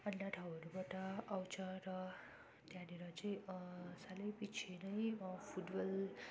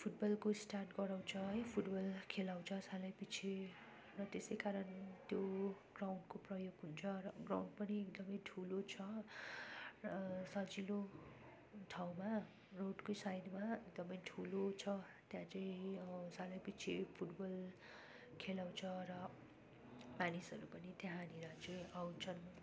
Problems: constant background noise